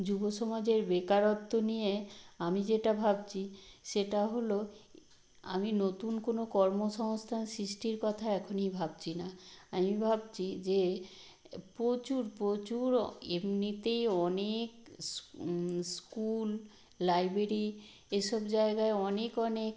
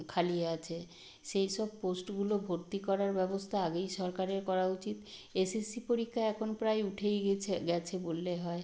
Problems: none marked